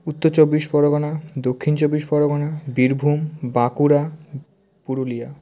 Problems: none marked